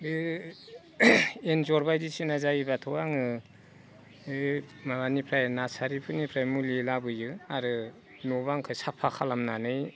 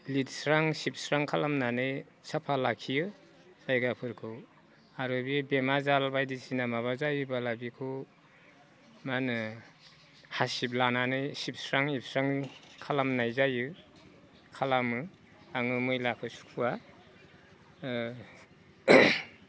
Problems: none marked